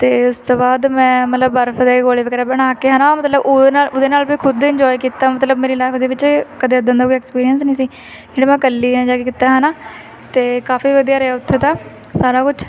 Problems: constant background noise, continuous background conversations